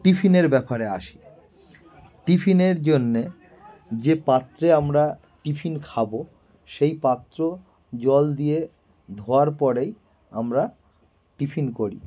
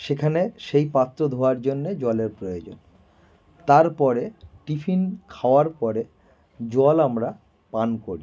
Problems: background sounds at intervals